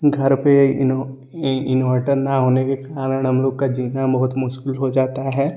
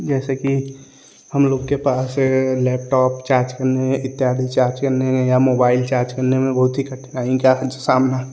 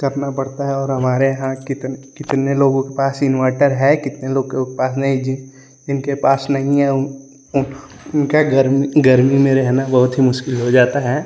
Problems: none marked